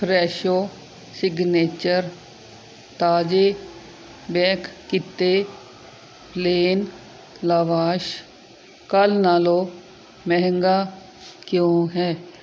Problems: none marked